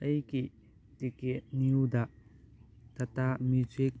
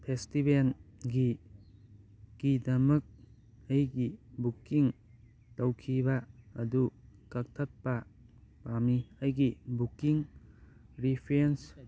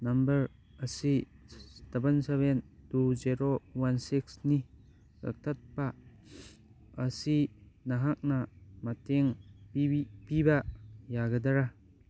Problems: background conversations at intervals